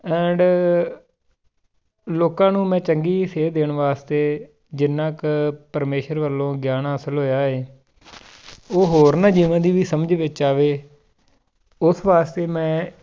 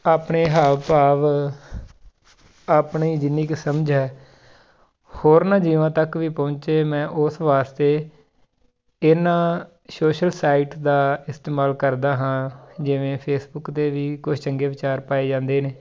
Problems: none marked